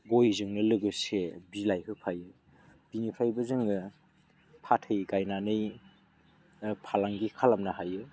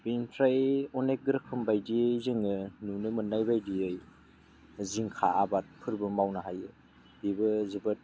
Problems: low volume